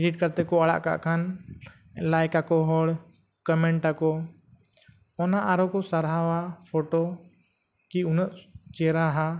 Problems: none marked